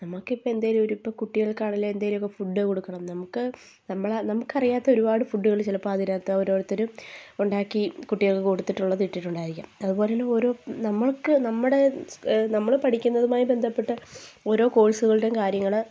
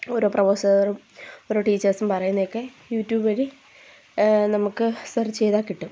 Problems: none marked